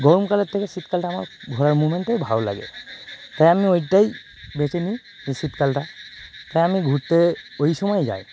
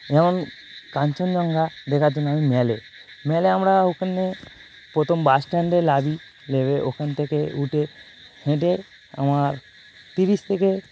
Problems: none marked